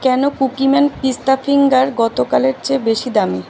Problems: none marked